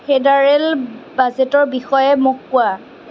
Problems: constant background noise